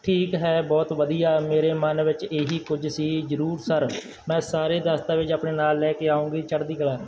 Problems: background sounds at intervals, background conversations at intervals